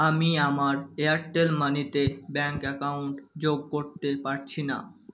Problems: none marked